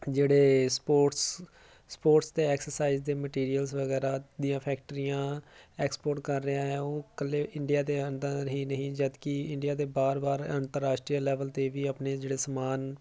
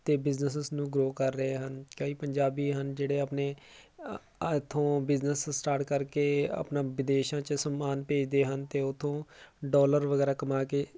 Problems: none marked